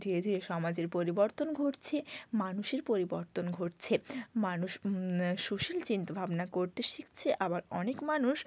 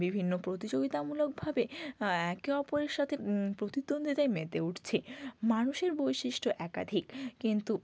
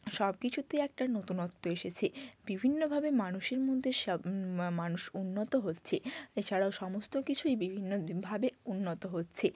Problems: background sounds at intervals